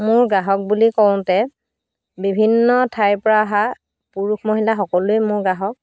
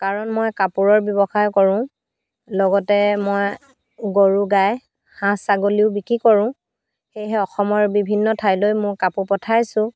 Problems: constant background noise